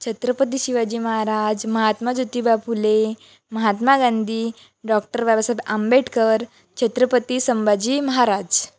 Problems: none marked